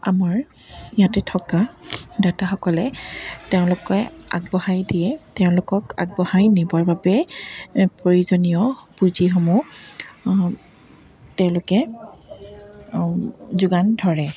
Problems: background sounds at intervals